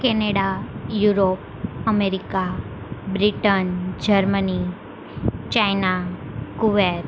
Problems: constant background noise